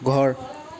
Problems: constant background noise, background conversations at intervals